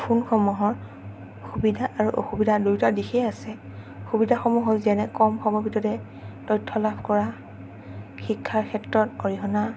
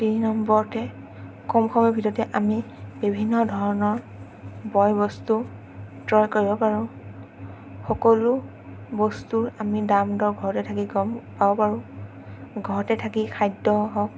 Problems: none marked